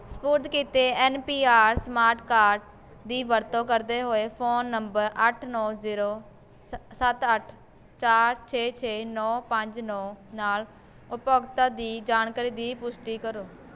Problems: none marked